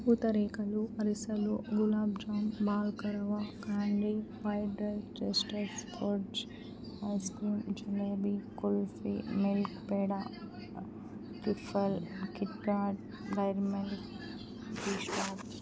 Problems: background sounds at intervals